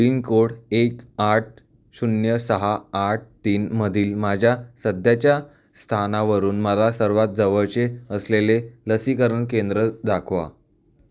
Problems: none marked